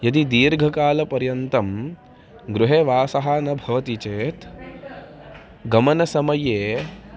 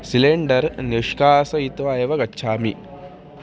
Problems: continuous background conversations